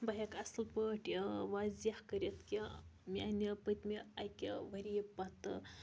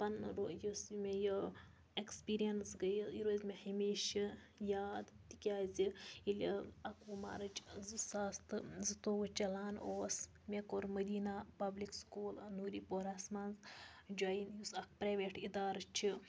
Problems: background sounds at intervals